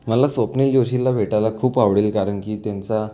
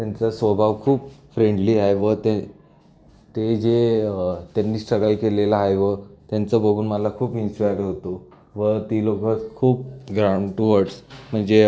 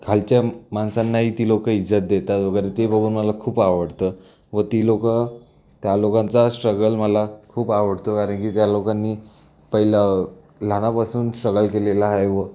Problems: none marked